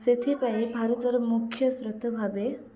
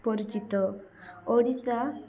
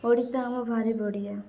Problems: continuous background conversations